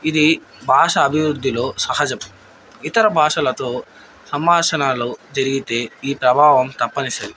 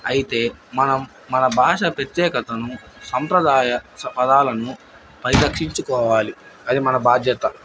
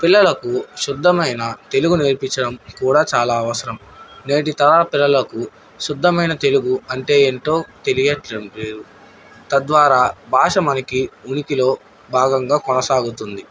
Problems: background sounds at intervals